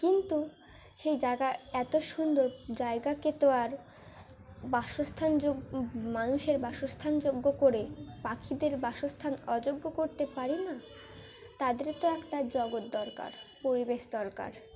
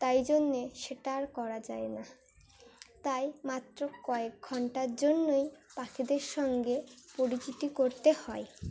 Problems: none marked